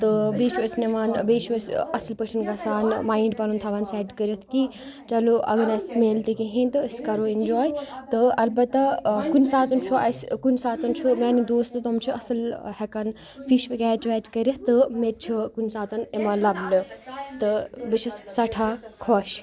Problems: continuous background conversations